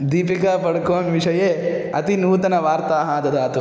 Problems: constant background noise